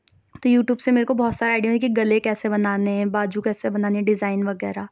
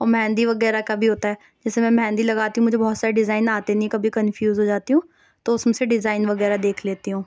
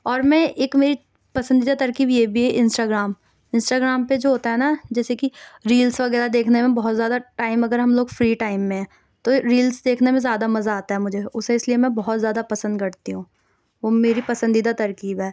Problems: none marked